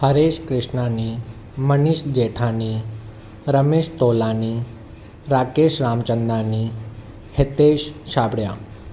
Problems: none marked